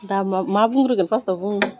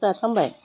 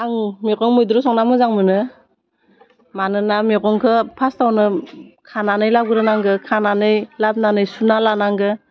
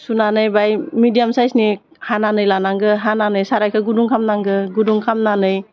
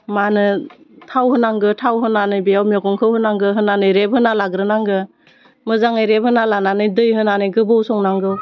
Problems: none marked